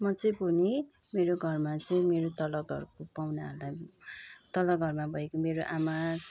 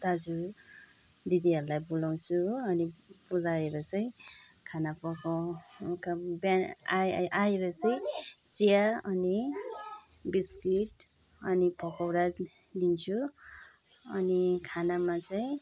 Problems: background sounds at intervals